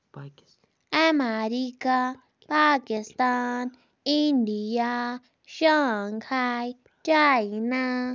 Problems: background sounds at intervals